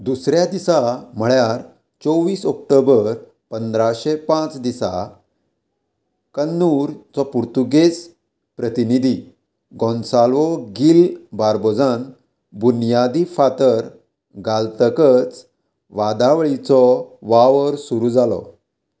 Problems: constant background noise